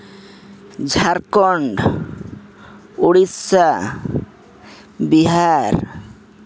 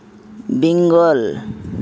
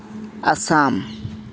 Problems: background sounds at intervals